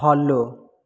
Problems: none marked